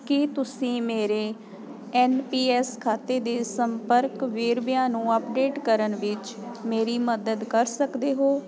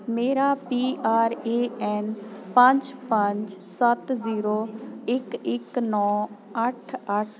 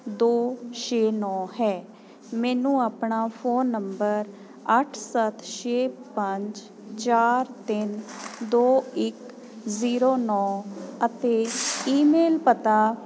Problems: constant background noise